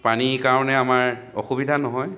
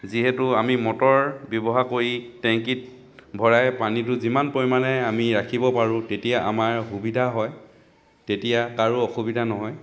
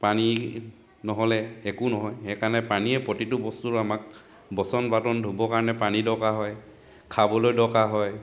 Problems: none marked